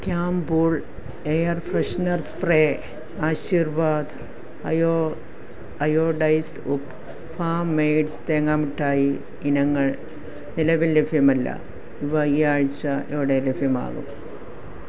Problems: background sounds at intervals